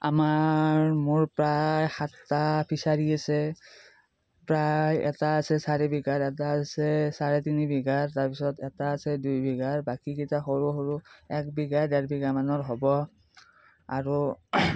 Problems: none marked